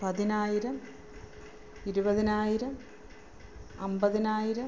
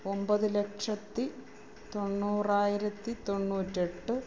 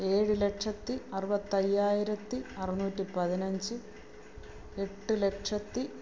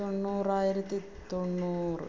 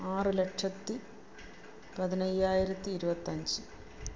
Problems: low volume